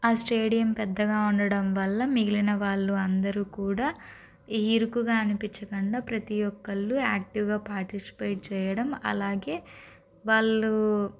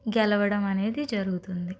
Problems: constant background noise